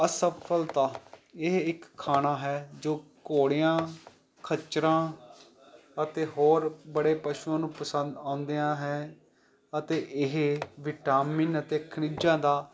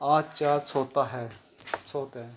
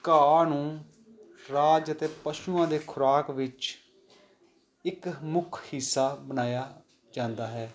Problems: constant background noise, continuous background conversations